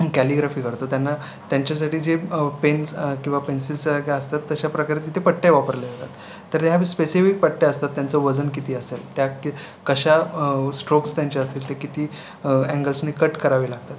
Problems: none marked